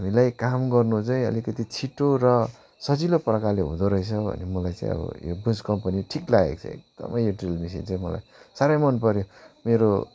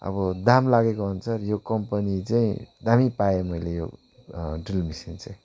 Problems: background sounds at intervals